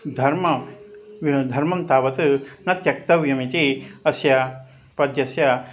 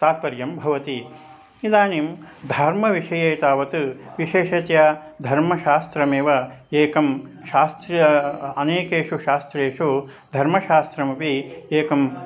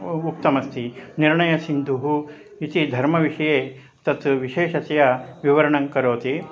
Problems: constant background noise